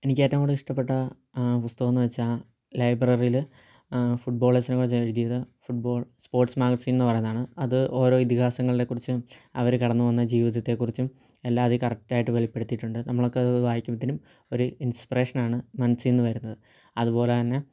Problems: low volume